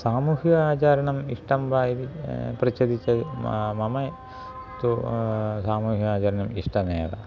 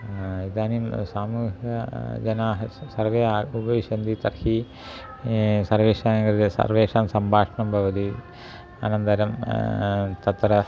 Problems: constant background noise